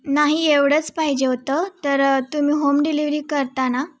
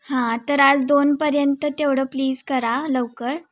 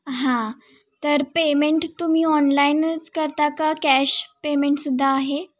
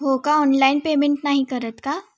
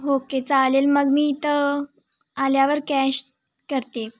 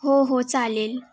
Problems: background sounds at intervals